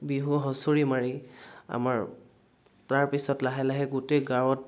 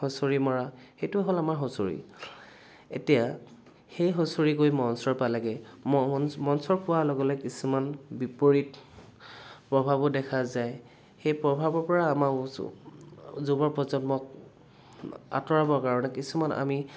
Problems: constant background noise